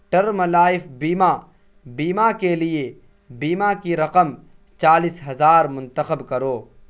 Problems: constant background noise